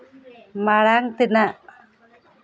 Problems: background conversations at intervals